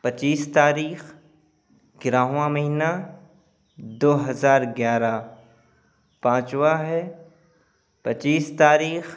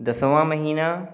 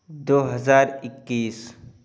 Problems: constant background noise, background conversations at intervals